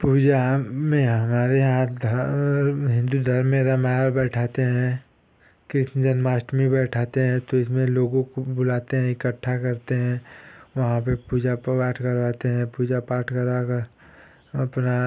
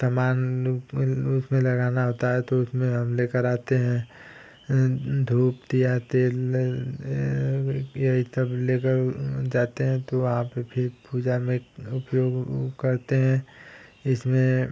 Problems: constant background noise